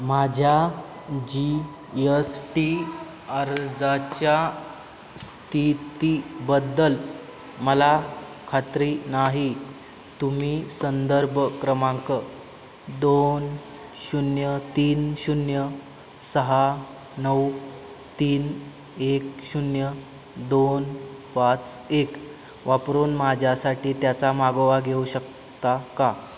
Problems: none marked